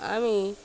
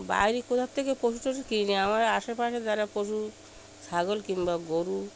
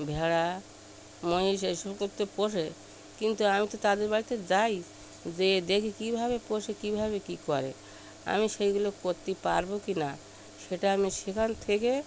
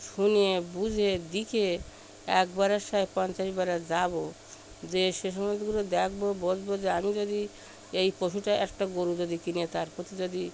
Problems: none marked